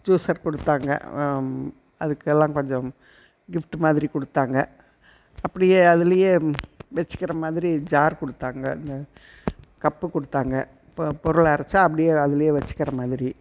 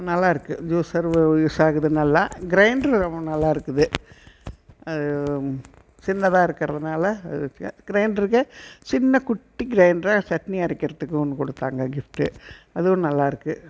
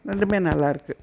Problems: background sounds at intervals